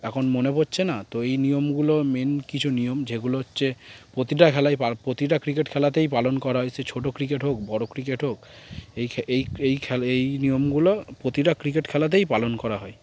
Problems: constant background noise